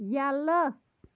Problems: background sounds at intervals